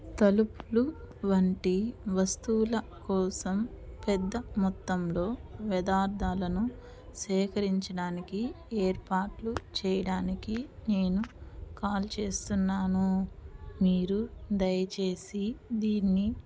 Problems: background sounds at intervals